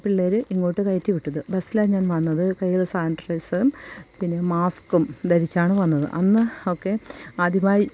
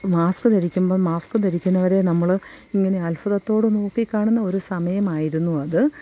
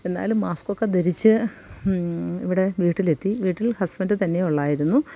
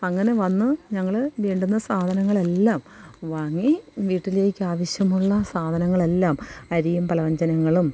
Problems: none marked